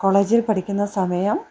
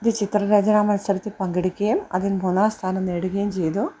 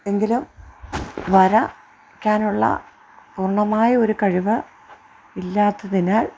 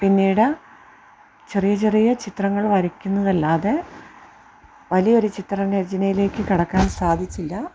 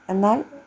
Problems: none marked